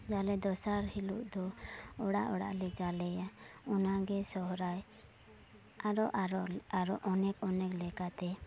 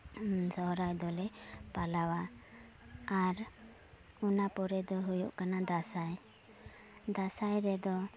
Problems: none marked